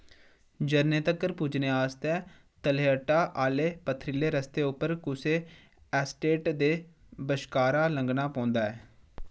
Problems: background sounds at intervals